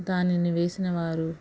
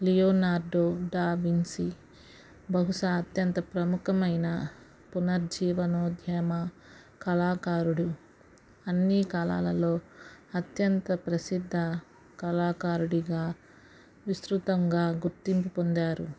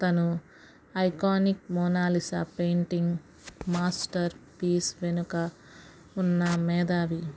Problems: none marked